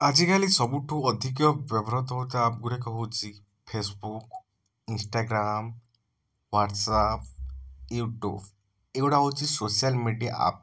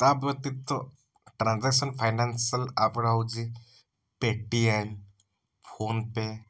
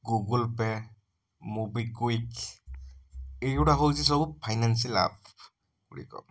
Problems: background sounds at intervals